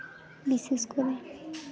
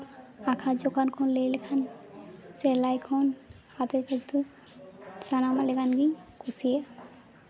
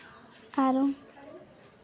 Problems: none marked